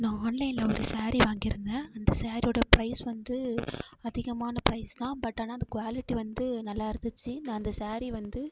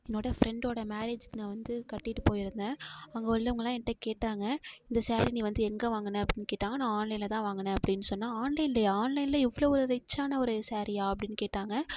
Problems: none marked